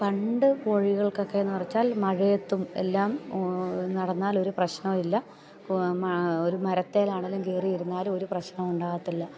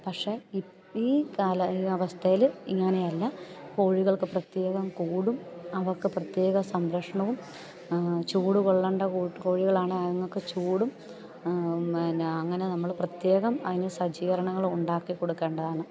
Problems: low volume